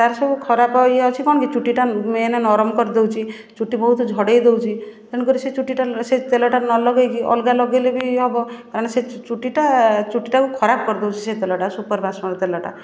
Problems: none marked